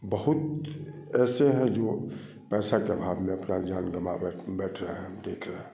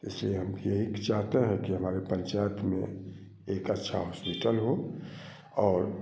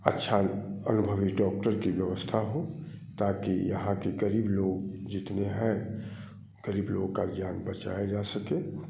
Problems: none marked